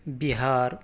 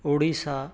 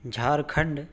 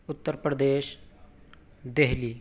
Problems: background sounds at intervals